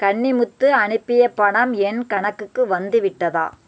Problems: constant background noise